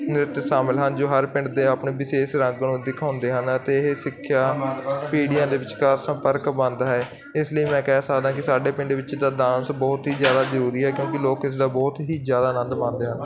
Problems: constant background noise, continuous background conversations